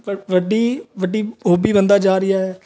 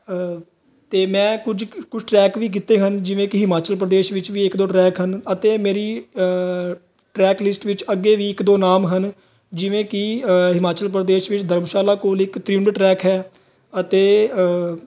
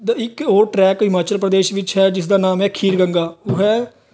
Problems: background sounds at intervals, background conversations at intervals